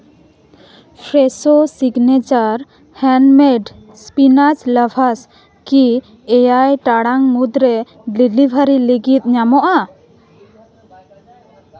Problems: background conversations at intervals